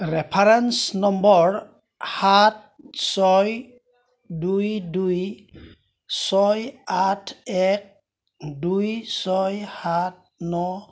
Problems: background sounds at intervals